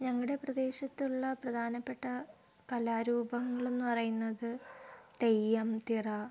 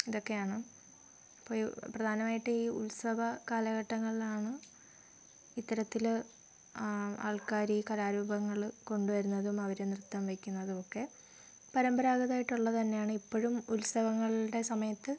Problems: low volume